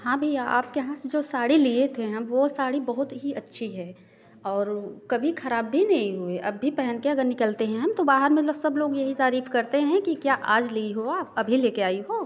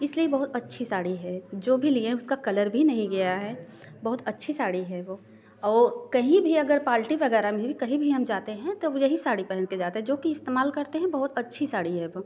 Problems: none marked